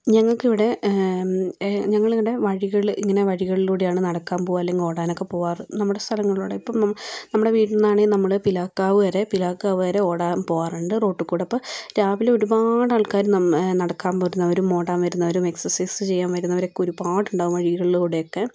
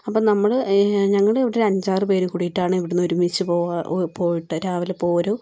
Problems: none marked